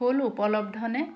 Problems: none marked